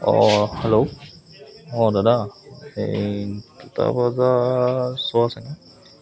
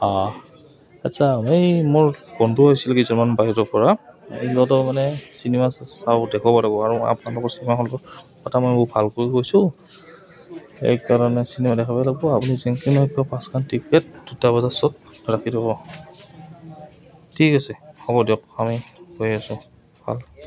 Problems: none marked